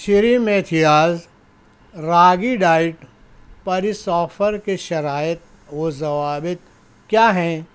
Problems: none marked